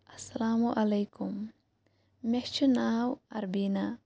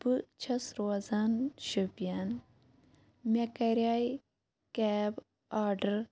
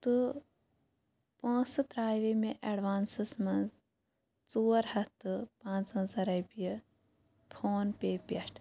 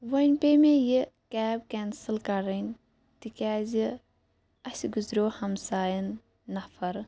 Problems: none marked